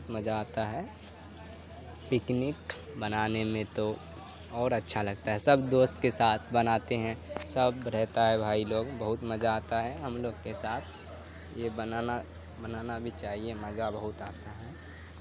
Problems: constant background noise